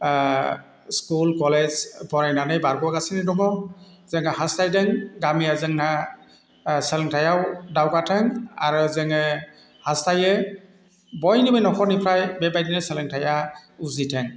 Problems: none marked